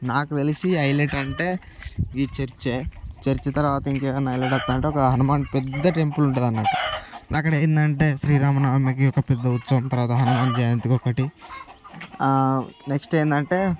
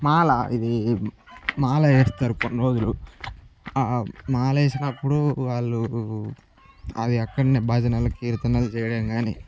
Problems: background sounds at intervals